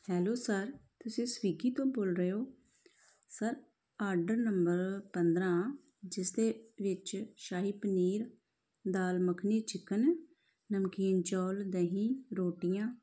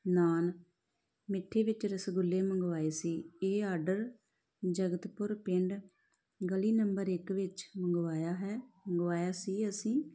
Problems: none marked